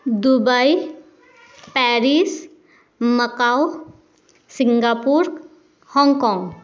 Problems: none marked